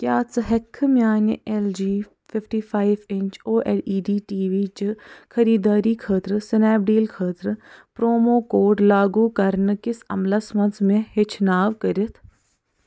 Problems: none marked